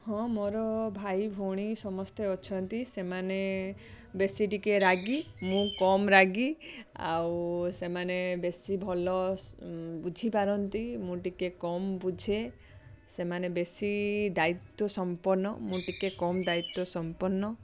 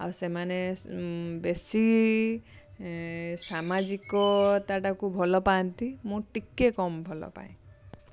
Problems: constant background noise, continuous background conversations